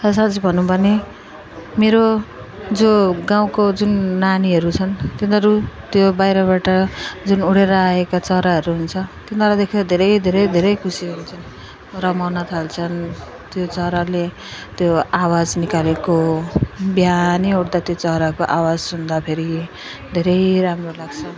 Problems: continuous background conversations